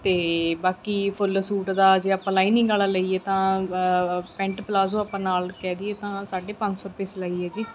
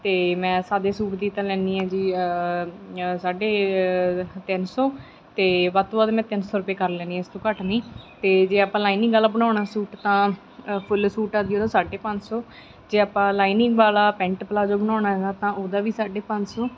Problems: background sounds at intervals